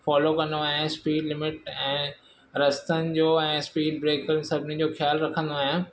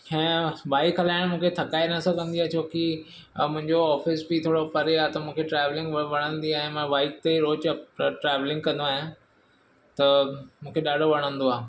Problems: background sounds at intervals